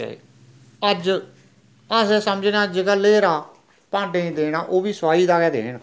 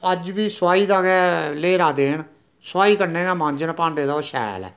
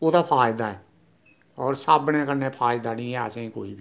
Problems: none marked